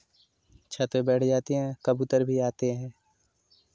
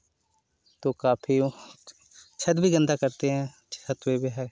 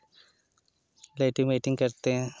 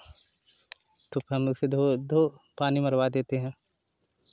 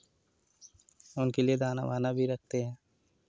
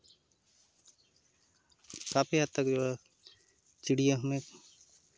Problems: constant background noise